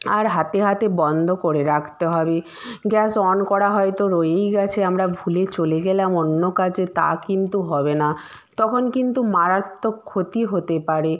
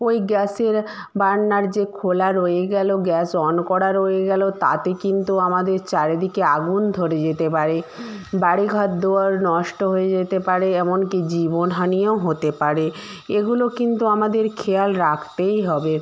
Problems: none marked